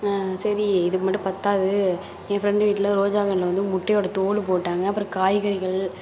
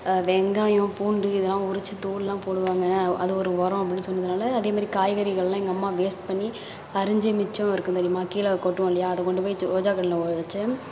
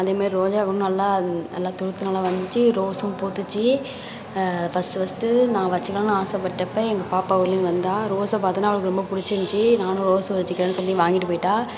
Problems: constant background noise, continuous background conversations